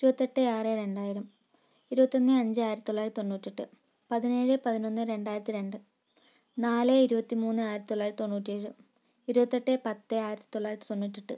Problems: low volume